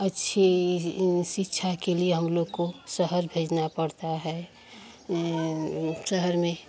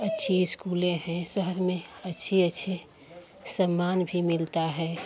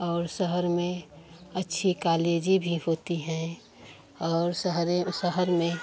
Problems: none marked